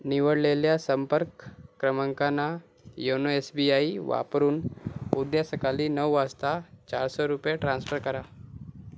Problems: background sounds at intervals